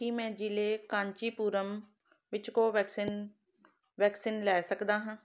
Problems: background sounds at intervals